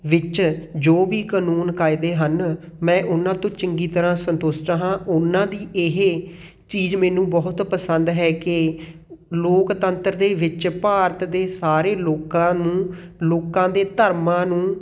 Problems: background sounds at intervals